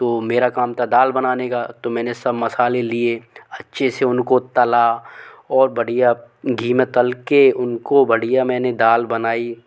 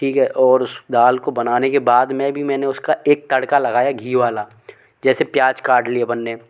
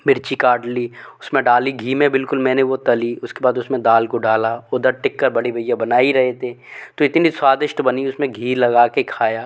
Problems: none marked